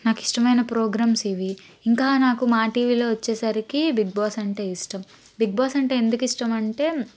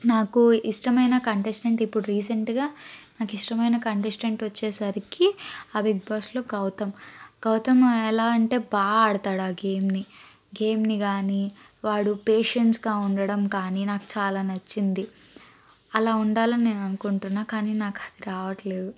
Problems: constant background noise